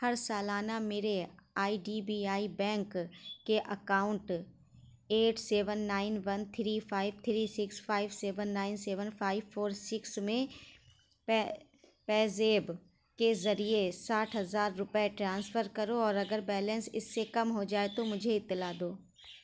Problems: constant background noise, low volume